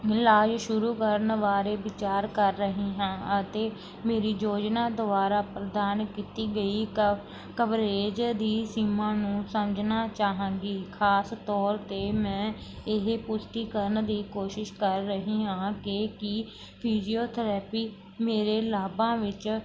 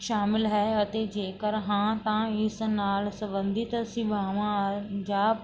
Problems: none marked